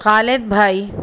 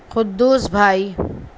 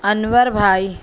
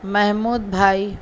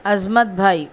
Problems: none marked